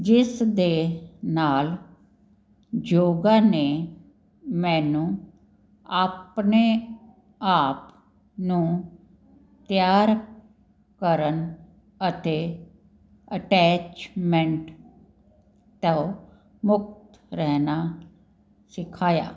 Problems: none marked